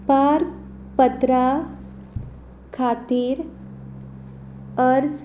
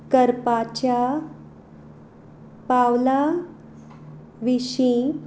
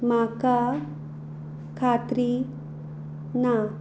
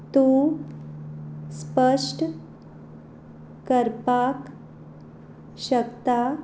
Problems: background sounds at intervals